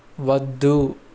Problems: constant background noise